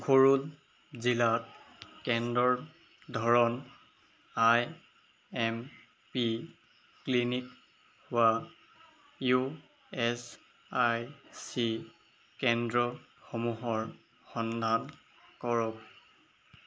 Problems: background sounds at intervals